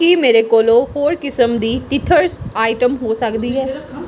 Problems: background conversations at intervals